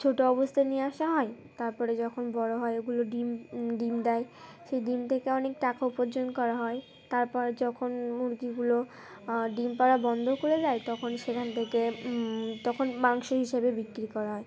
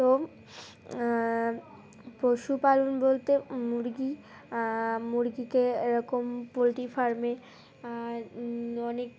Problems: constant background noise, continuous background conversations